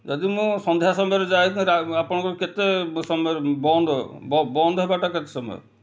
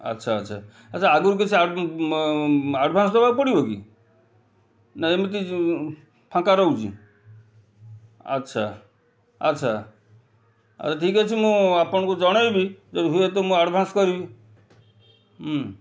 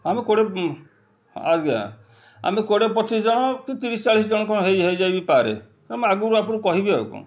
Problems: none marked